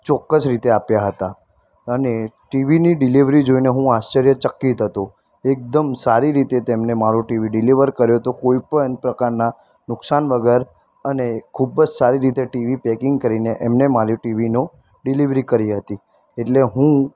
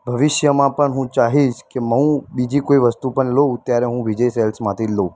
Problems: constant background noise